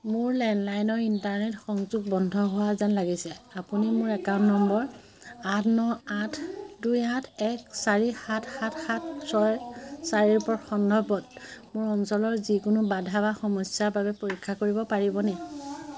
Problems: constant background noise, continuous background conversations